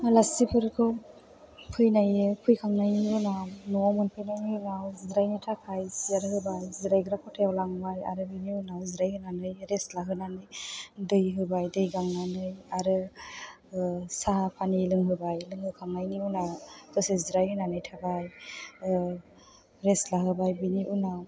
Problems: background sounds at intervals